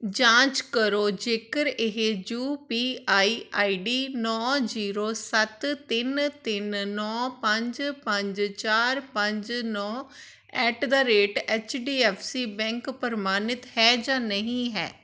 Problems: none marked